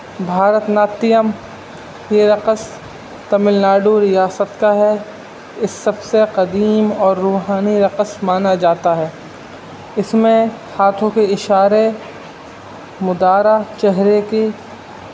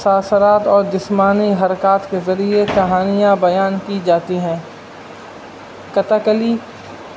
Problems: constant background noise